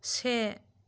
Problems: none marked